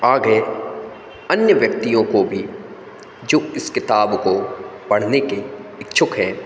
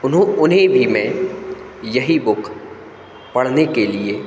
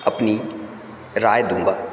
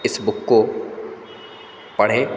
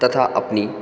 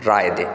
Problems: constant background noise, echo